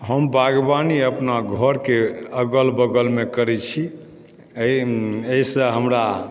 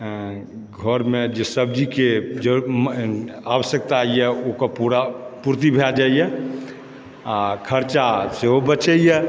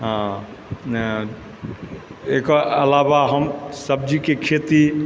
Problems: background sounds at intervals